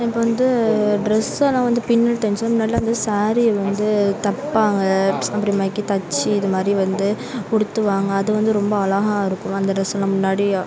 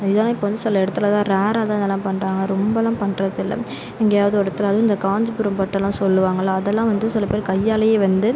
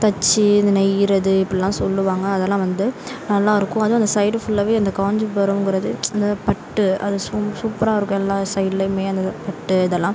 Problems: constant background noise, continuous background conversations